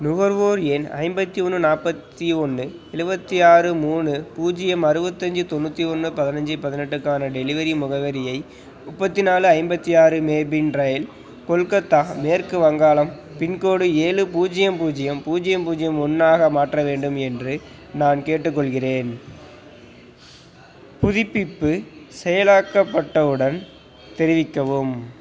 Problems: constant background noise, background conversations at intervals